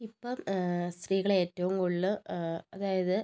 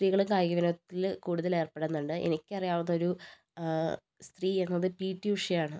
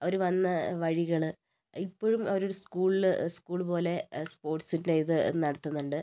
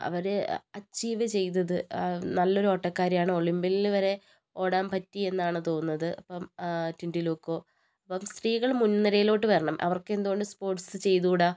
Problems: low volume